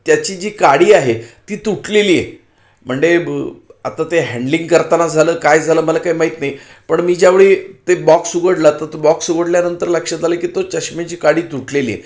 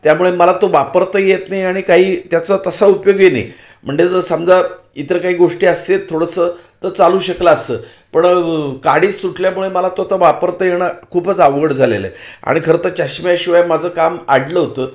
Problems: none marked